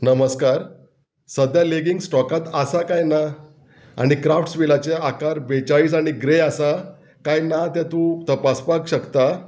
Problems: none marked